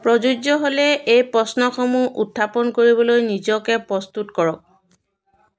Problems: background conversations at intervals